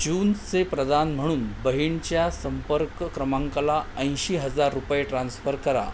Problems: constant background noise